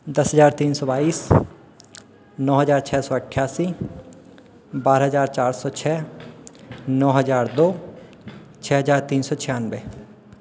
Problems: constant background noise, echo